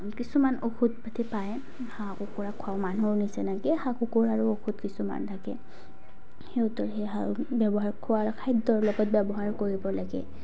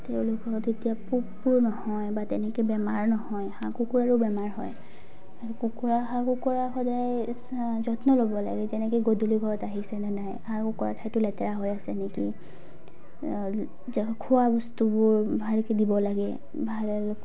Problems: background sounds at intervals